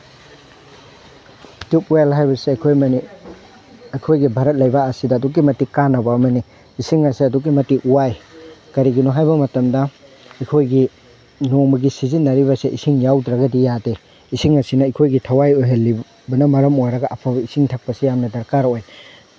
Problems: none marked